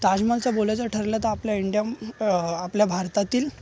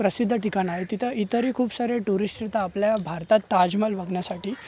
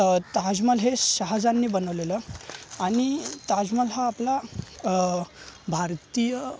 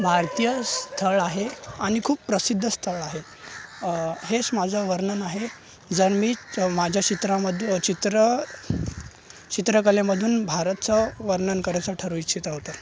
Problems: none marked